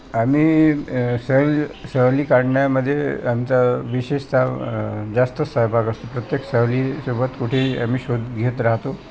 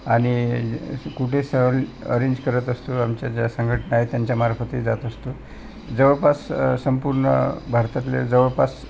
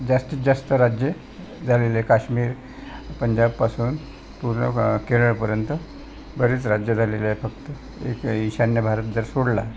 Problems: constant background noise, continuous background conversations